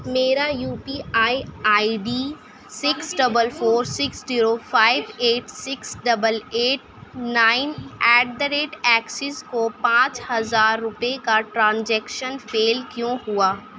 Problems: none marked